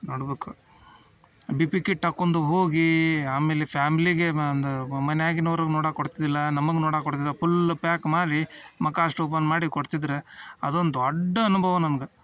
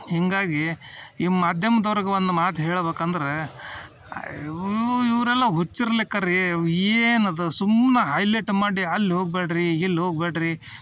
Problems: background sounds at intervals